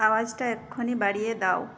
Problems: none marked